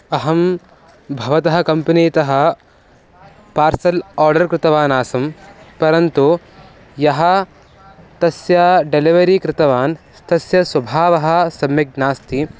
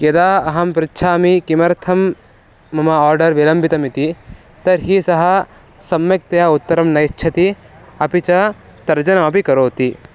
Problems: background sounds at intervals